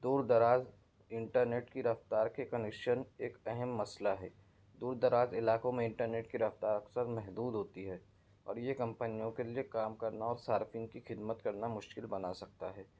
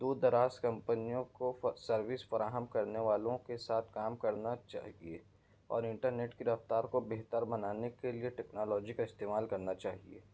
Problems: none marked